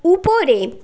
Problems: background conversations at intervals